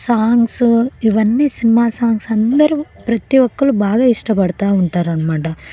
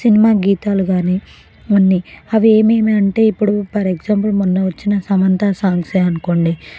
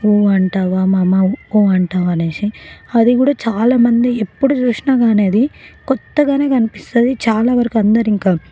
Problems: background sounds at intervals, background conversations at intervals